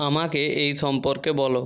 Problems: constant background noise